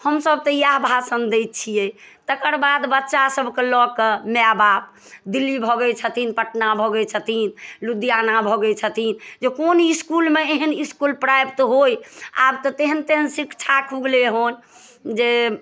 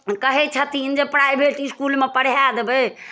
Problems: none marked